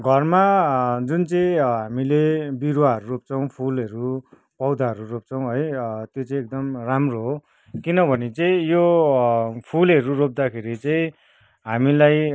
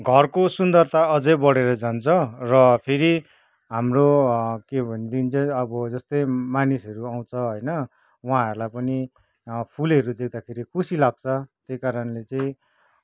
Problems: background conversations at intervals